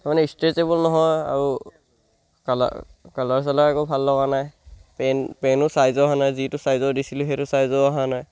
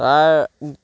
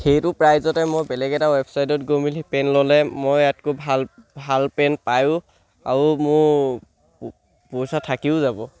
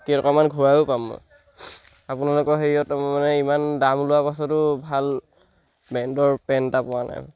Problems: background sounds at intervals